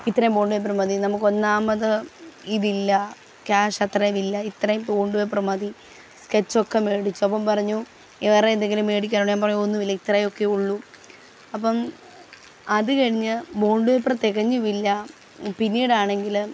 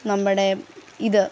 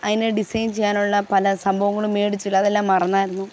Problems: constant background noise